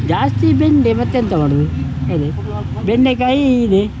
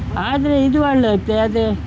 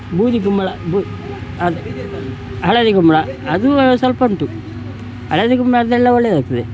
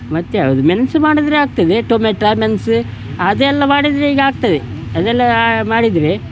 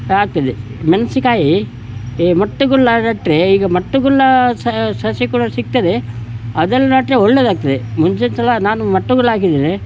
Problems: background sounds at intervals